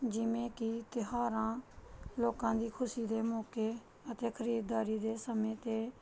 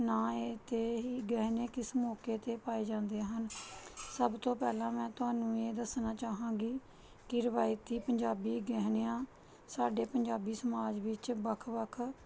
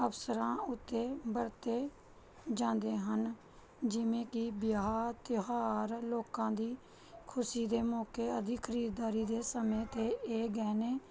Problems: none marked